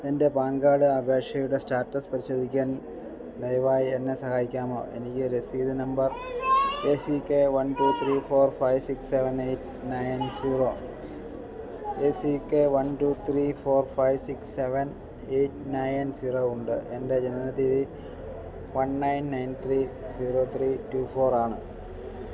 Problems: constant background noise